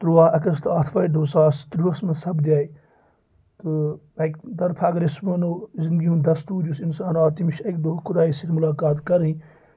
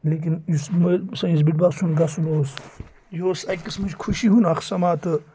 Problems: constant background noise